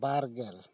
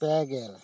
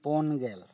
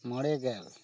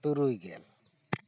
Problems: none marked